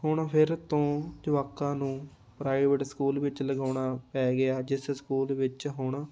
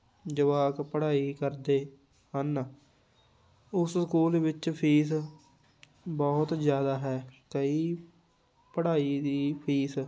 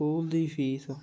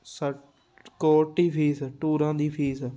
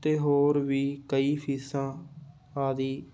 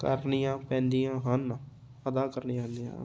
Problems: background sounds at intervals